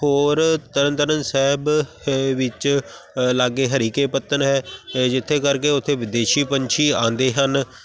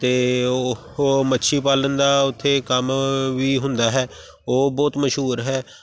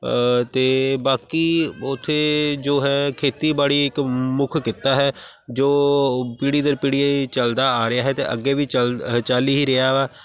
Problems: none marked